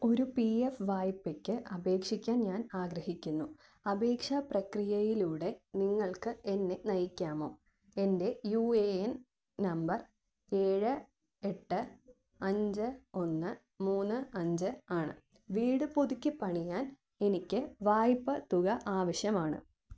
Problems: none marked